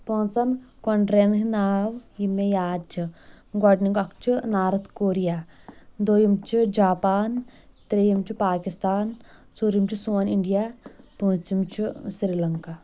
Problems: none marked